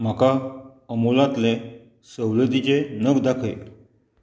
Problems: none marked